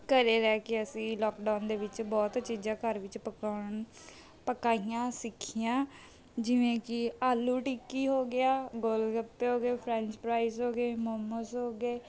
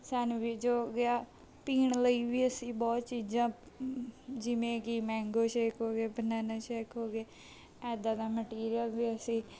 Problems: background sounds at intervals